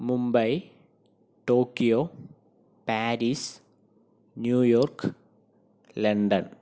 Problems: none marked